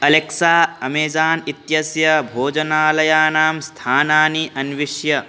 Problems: constant background noise